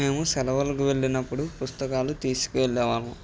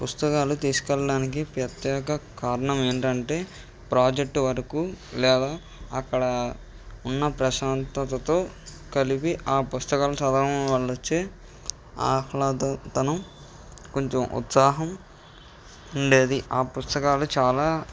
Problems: background sounds at intervals